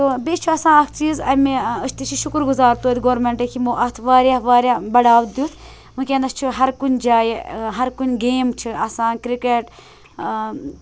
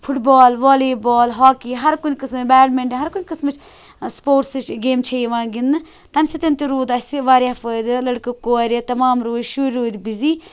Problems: background sounds at intervals